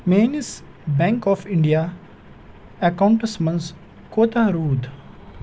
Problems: constant background noise